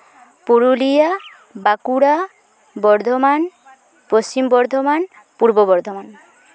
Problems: constant background noise, background conversations at intervals